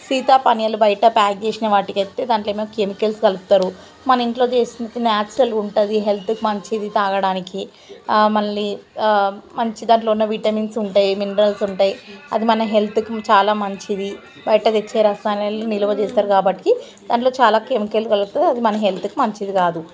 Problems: constant background noise